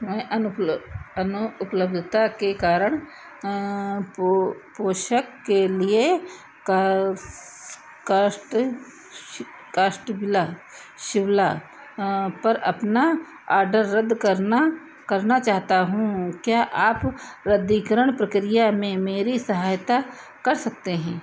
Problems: none marked